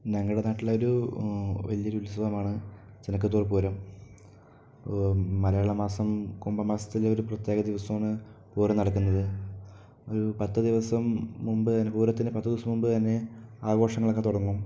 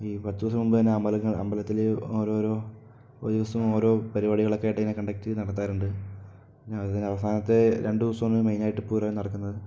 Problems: low volume